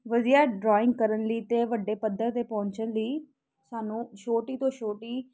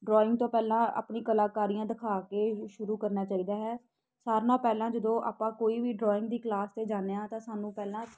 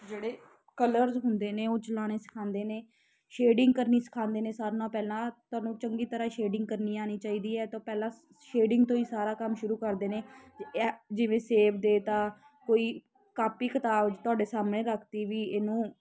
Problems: constant background noise